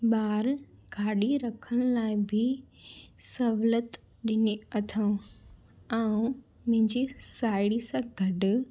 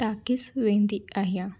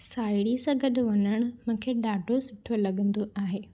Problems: none marked